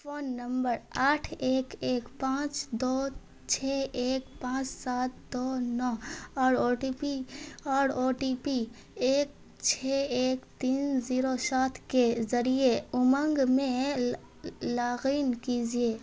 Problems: constant background noise